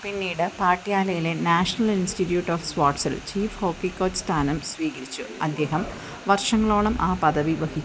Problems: constant background noise